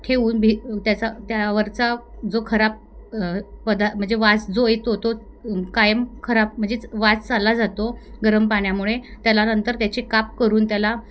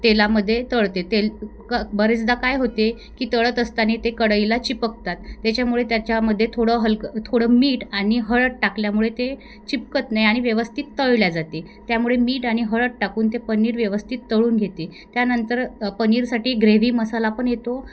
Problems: background sounds at intervals